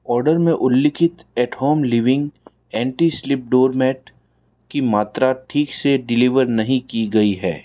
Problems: constant background noise